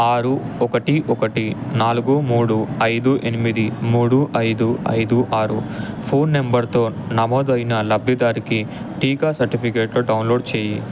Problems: constant background noise